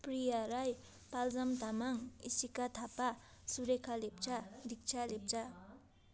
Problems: none marked